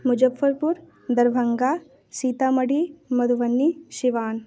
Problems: none marked